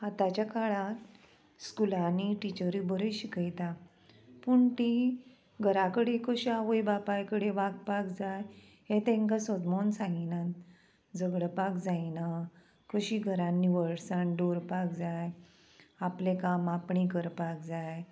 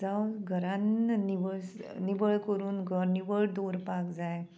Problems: constant background noise